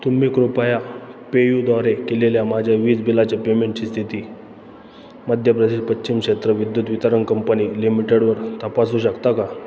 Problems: none marked